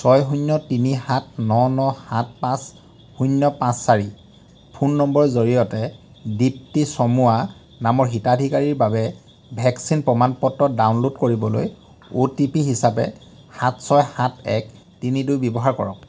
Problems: none marked